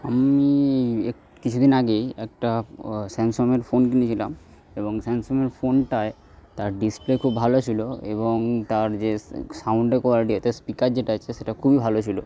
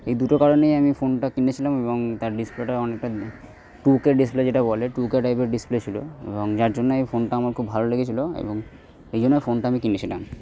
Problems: background sounds at intervals